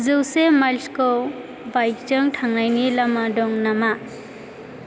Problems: none marked